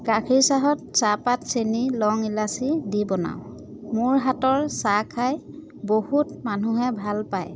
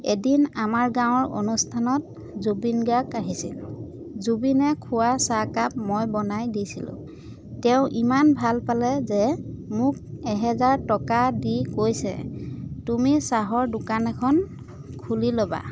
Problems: constant background noise, background conversations at intervals